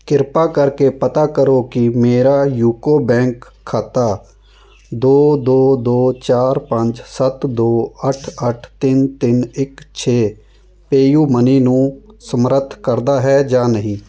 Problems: background sounds at intervals